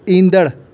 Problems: constant background noise, echo